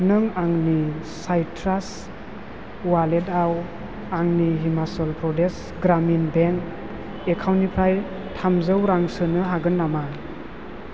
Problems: none marked